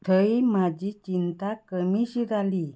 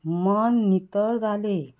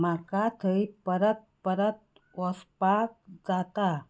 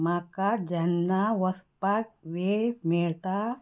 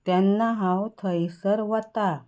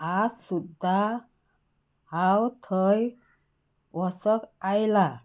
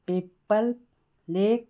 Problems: background sounds at intervals